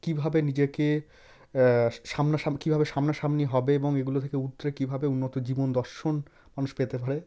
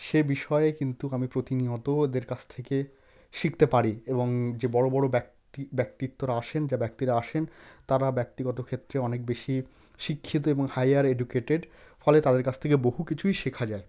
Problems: none marked